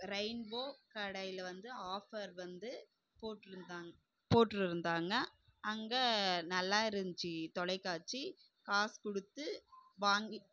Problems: low volume